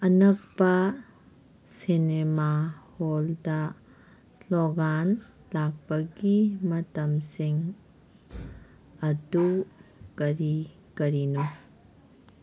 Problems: background sounds at intervals